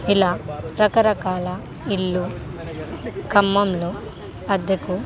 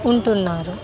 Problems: constant background noise